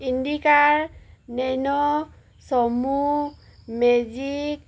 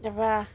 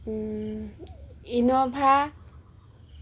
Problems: background sounds at intervals